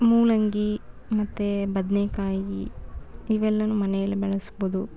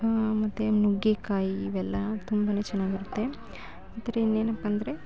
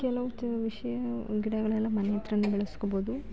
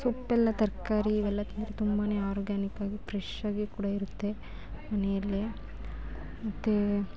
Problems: constant background noise